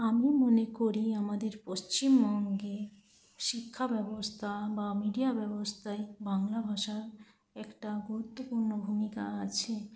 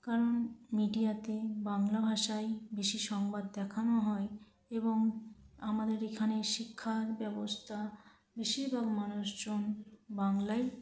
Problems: constant background noise, low volume